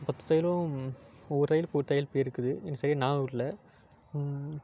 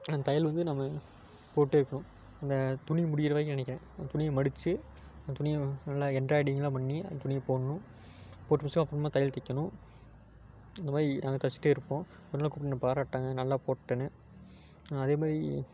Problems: background sounds at intervals